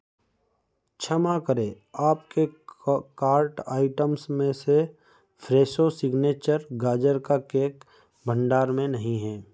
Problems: background sounds at intervals